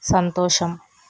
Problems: constant background noise